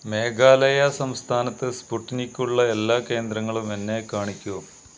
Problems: constant background noise